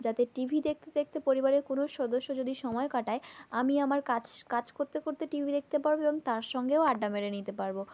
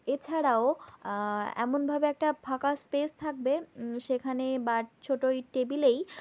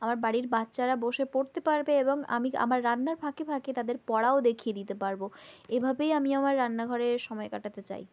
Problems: none marked